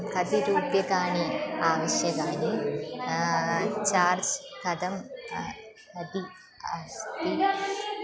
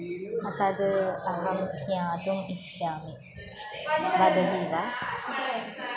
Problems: continuous background conversations